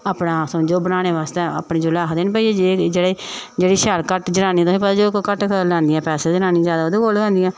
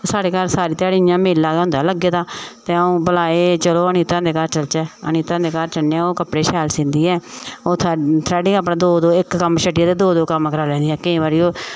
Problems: none marked